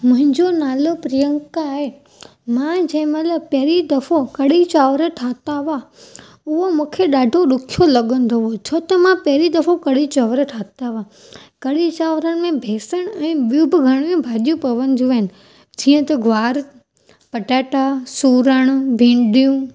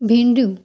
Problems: none marked